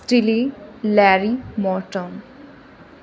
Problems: constant background noise